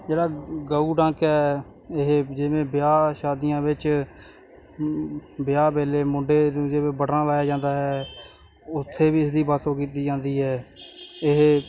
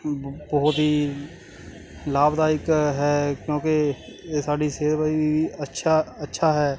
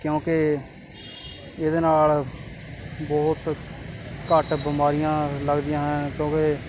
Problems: constant background noise